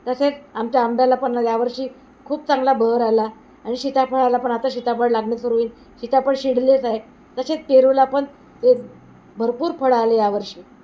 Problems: constant background noise